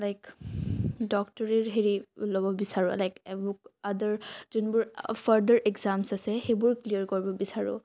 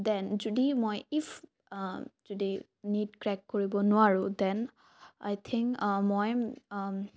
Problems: low volume